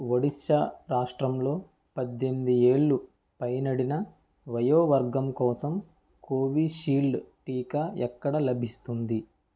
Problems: none marked